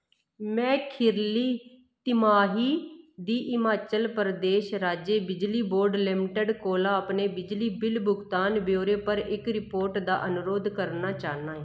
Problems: none marked